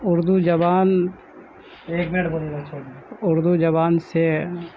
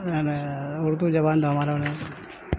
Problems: constant background noise, background conversations at intervals, low volume